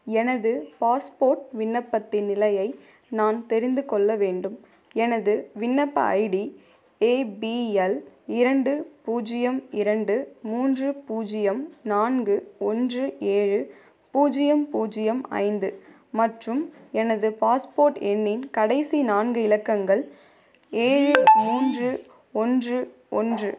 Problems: background sounds at intervals